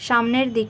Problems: constant background noise